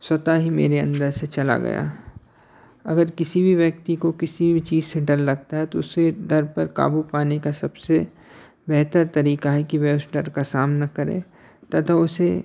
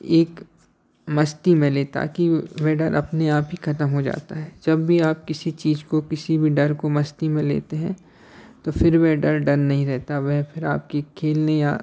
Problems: background sounds at intervals, background conversations at intervals